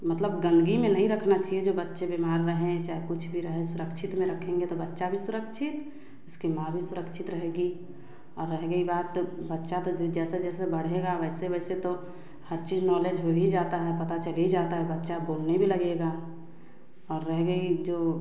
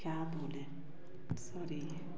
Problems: background sounds at intervals, background conversations at intervals, echo